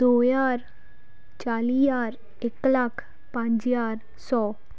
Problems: background sounds at intervals